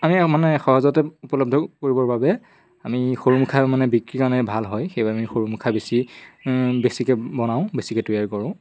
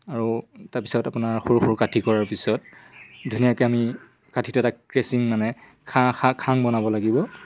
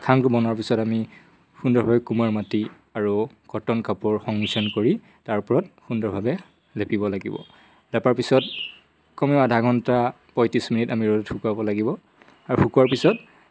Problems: none marked